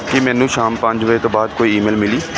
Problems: constant background noise